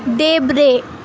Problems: constant background noise